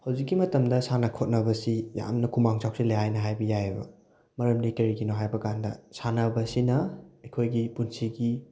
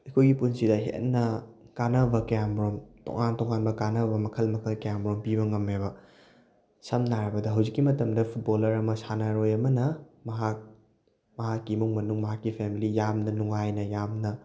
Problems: background sounds at intervals